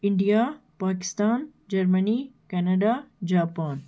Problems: constant background noise